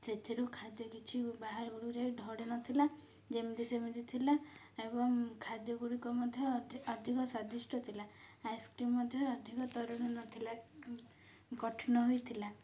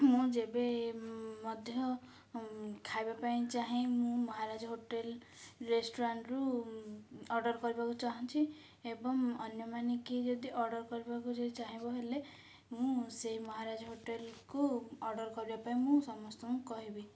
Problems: low volume